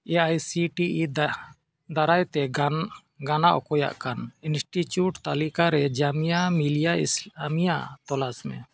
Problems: background sounds at intervals